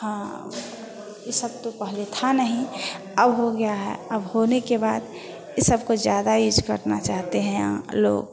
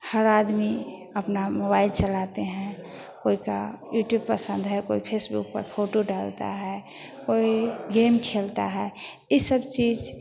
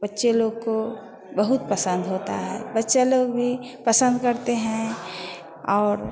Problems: none marked